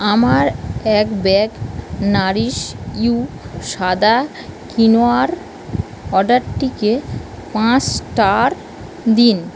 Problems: constant background noise